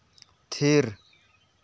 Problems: none marked